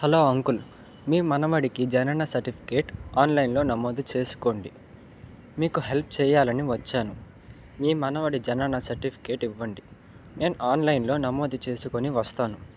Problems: background sounds at intervals